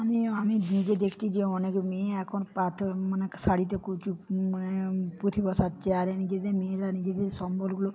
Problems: none marked